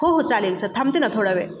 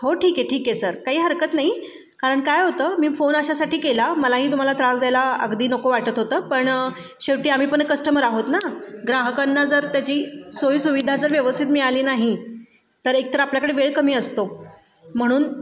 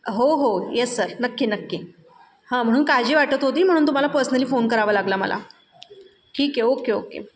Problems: background sounds at intervals, background conversations at intervals